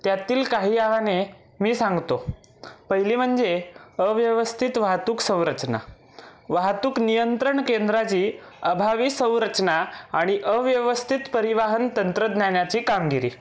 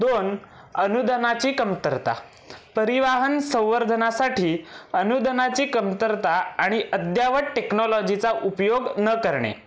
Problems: constant background noise, background conversations at intervals